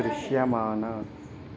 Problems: constant background noise, background conversations at intervals